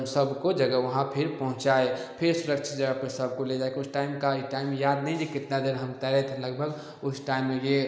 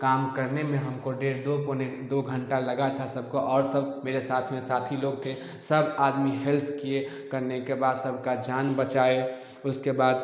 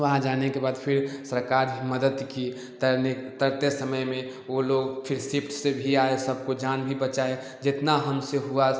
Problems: none marked